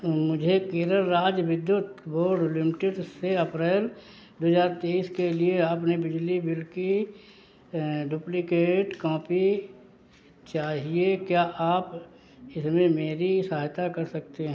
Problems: background sounds at intervals